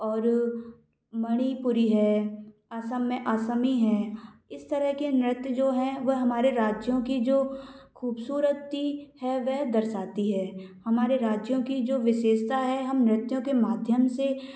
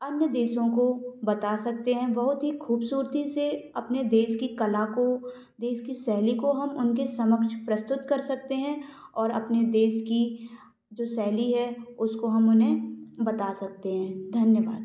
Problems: background sounds at intervals